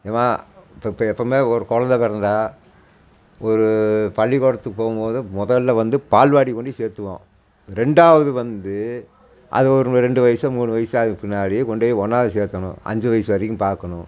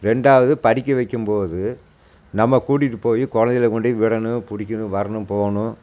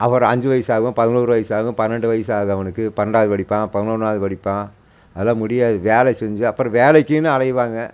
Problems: constant background noise